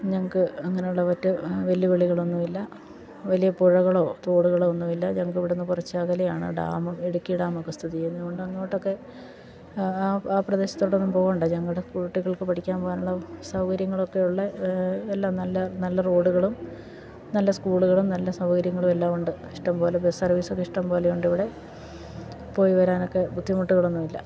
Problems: none marked